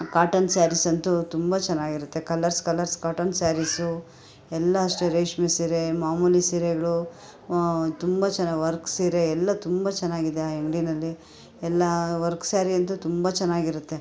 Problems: background sounds at intervals, background conversations at intervals